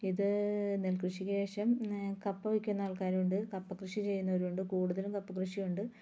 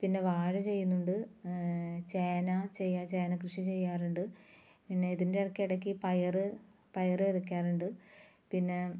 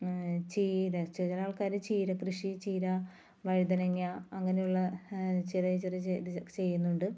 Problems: low volume